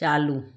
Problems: none marked